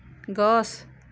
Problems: none marked